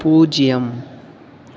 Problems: none marked